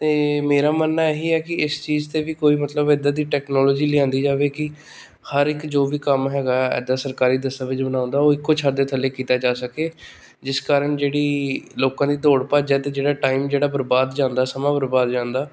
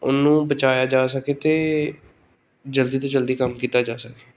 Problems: none marked